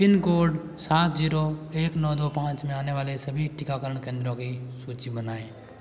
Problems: constant background noise